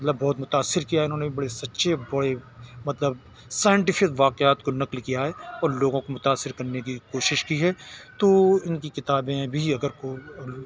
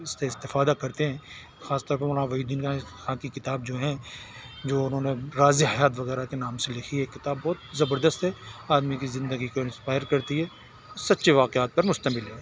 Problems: none marked